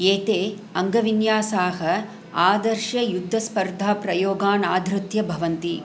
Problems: none marked